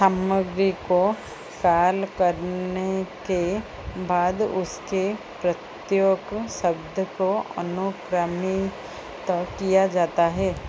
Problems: constant background noise